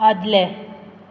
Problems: none marked